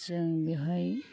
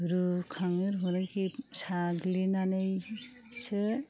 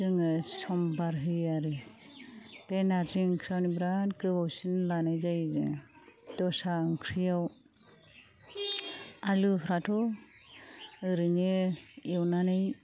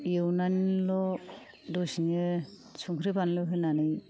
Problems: low volume